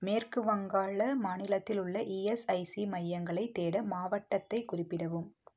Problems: low volume